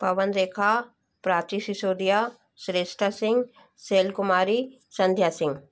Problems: constant background noise